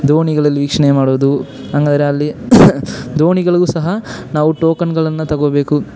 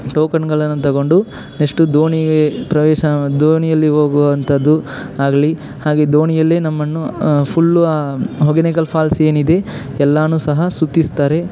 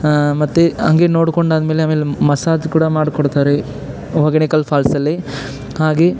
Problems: none marked